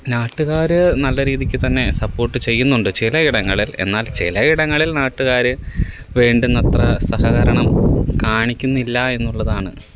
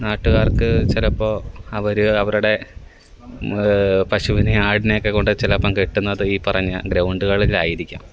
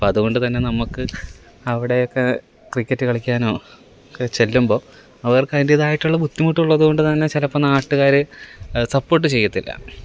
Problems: constant background noise